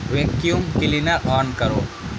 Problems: constant background noise